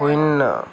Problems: background conversations at intervals